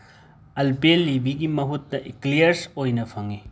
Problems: background sounds at intervals